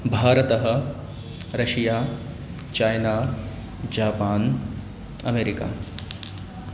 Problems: background sounds at intervals